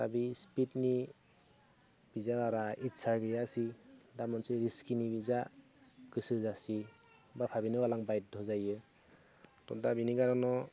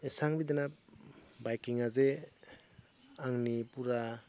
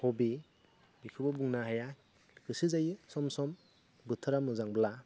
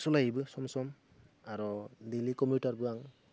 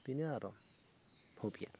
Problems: none marked